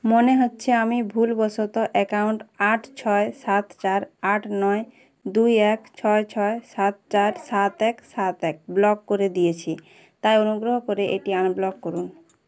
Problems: background sounds at intervals